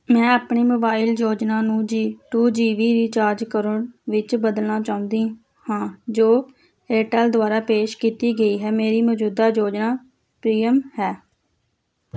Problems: none marked